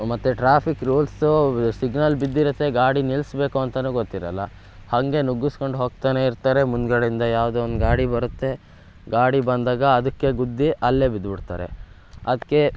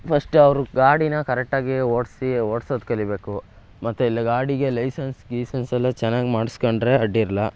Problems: background sounds at intervals